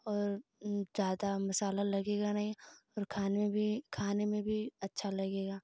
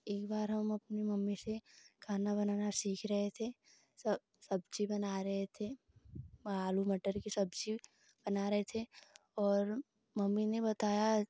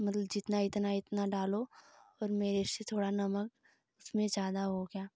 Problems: none marked